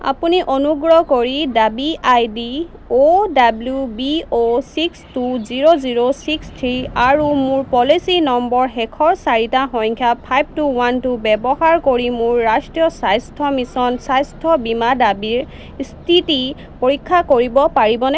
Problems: none marked